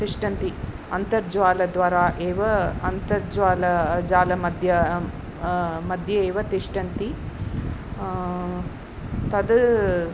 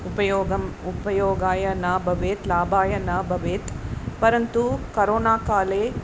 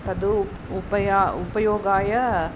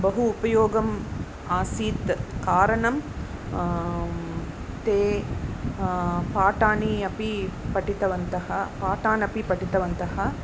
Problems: constant background noise, background conversations at intervals